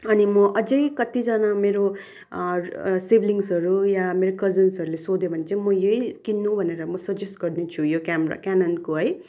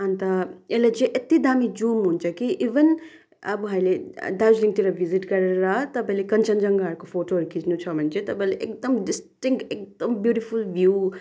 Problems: background sounds at intervals